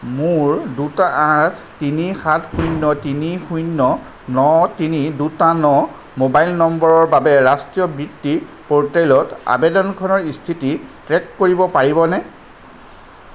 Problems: background sounds at intervals